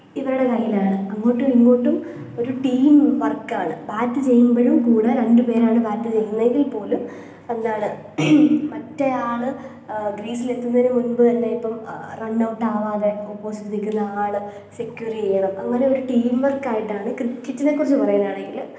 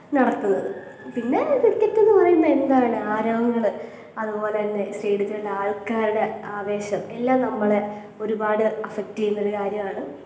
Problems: low volume